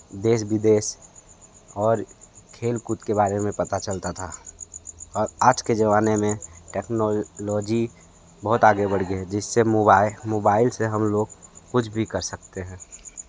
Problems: background conversations at intervals